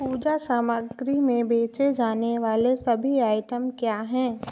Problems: constant background noise